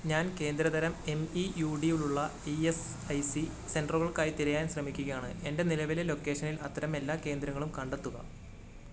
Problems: background sounds at intervals